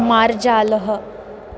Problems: constant background noise